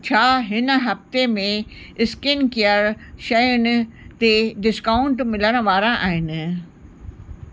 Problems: constant background noise